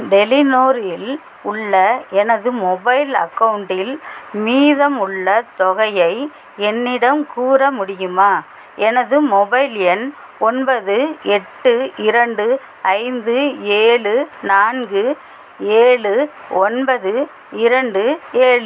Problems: constant background noise